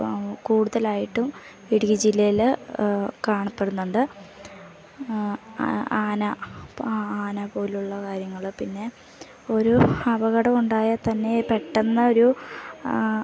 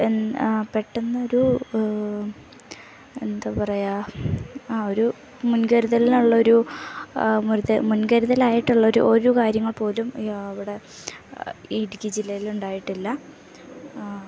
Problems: background sounds at intervals